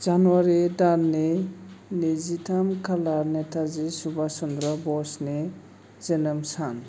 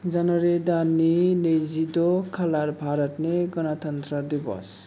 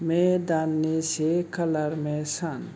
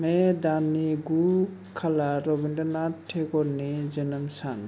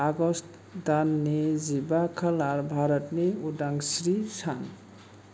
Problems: none marked